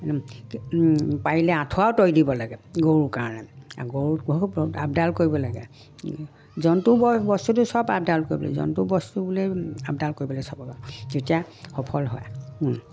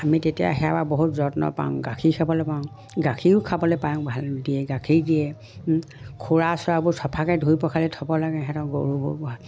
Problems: none marked